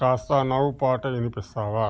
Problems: constant background noise